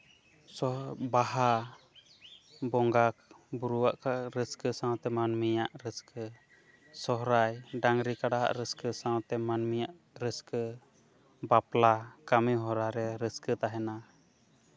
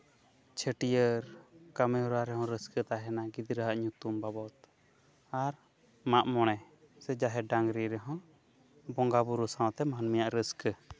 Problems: none marked